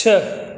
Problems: constant background noise